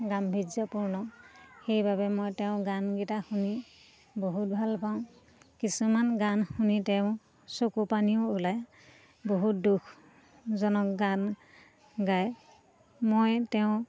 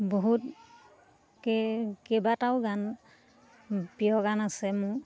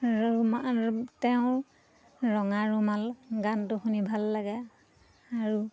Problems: constant background noise, continuous background conversations